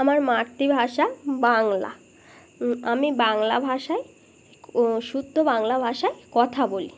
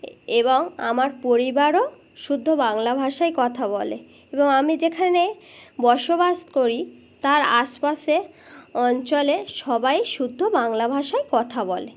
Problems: constant background noise